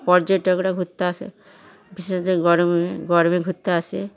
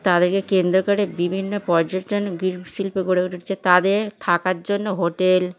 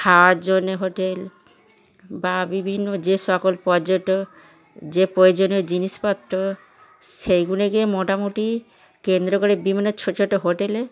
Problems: background sounds at intervals, continuous background conversations